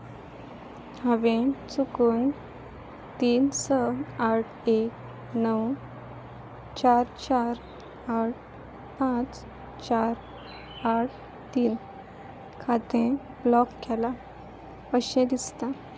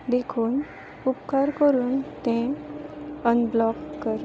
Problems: background sounds at intervals